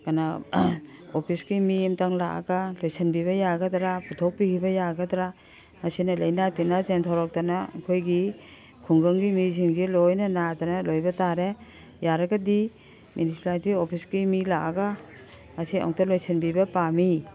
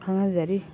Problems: background sounds at intervals, background conversations at intervals